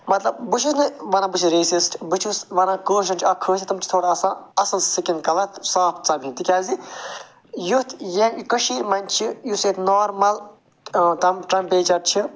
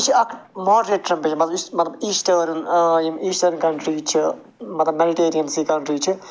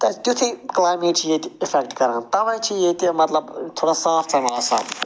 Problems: constant background noise